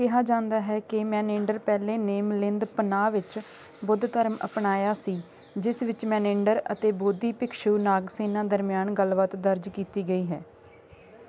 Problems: constant background noise